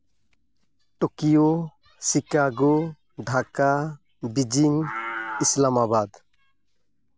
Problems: constant background noise, background conversations at intervals